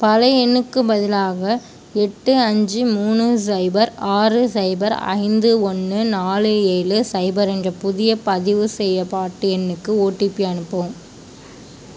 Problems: none marked